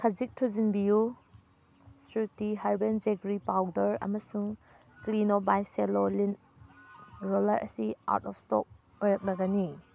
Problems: background sounds at intervals